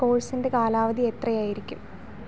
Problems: background sounds at intervals